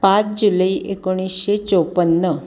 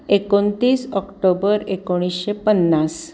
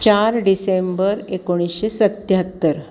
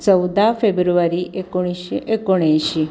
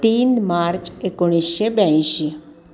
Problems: none marked